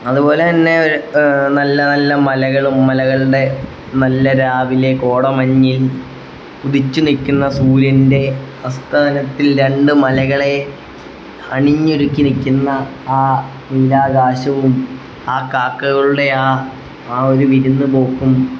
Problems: none marked